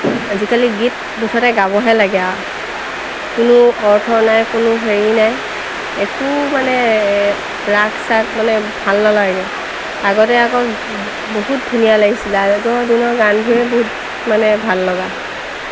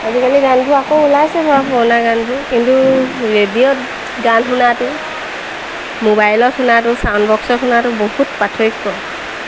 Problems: constant background noise, background conversations at intervals